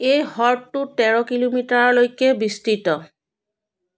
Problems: background conversations at intervals